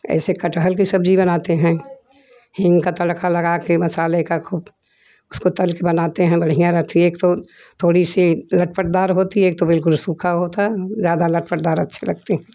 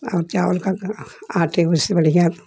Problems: background sounds at intervals